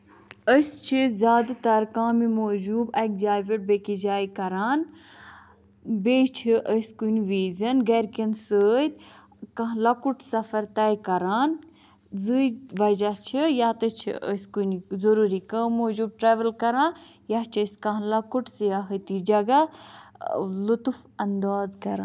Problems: none marked